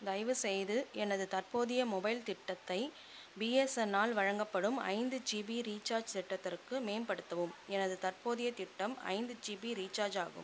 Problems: constant background noise